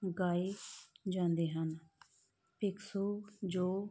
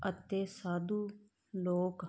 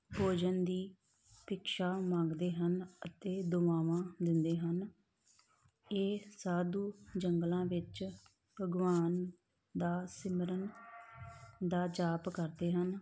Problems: background sounds at intervals